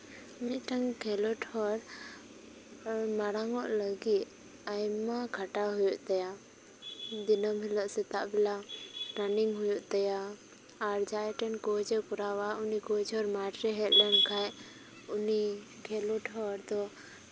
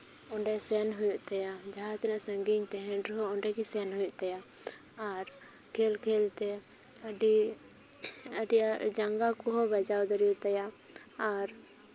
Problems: constant background noise, background conversations at intervals